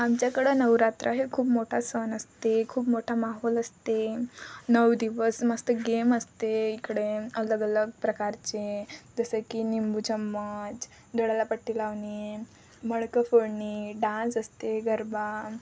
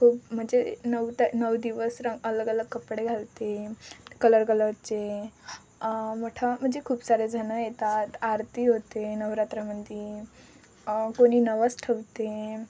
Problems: constant background noise, background conversations at intervals